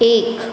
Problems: constant background noise